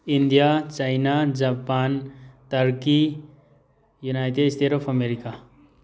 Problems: background sounds at intervals